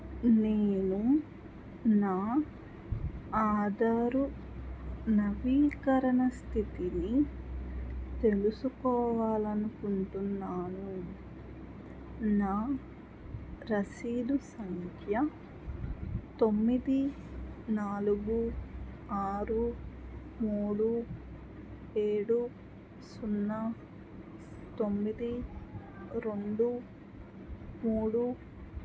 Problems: low volume